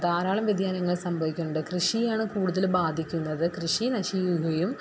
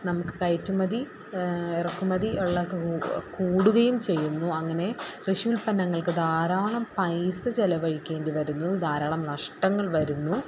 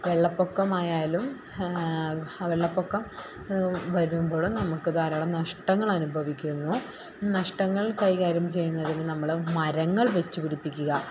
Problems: background sounds at intervals